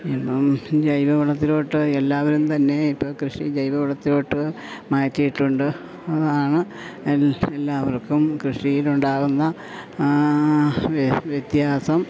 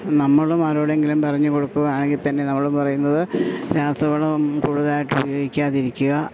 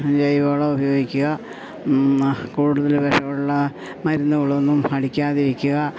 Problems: none marked